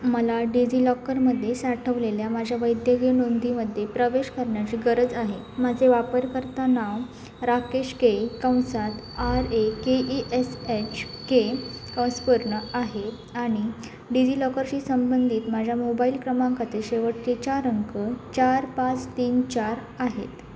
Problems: none marked